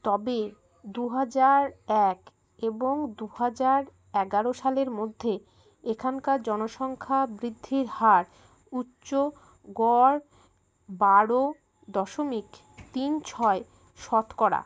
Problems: background sounds at intervals